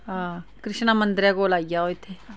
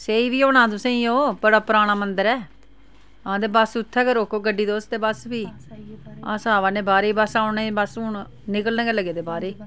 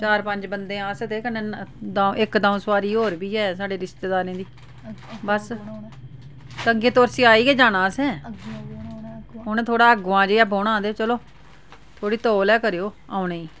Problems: none marked